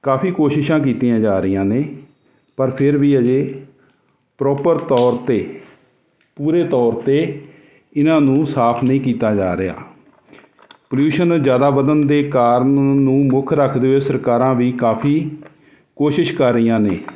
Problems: none marked